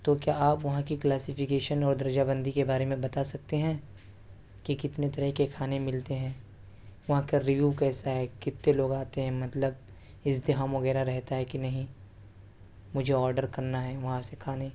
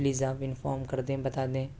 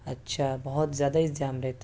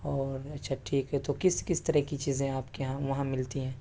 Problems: constant background noise